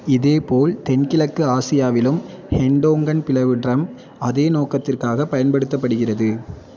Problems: continuous background conversations